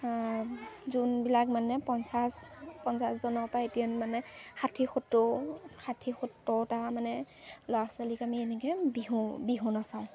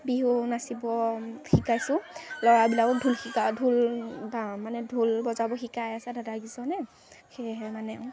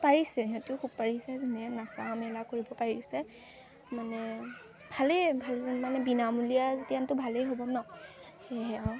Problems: constant background noise, background conversations at intervals